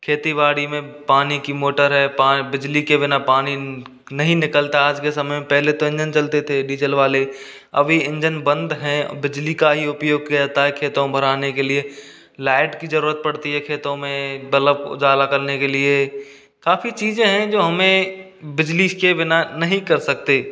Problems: constant background noise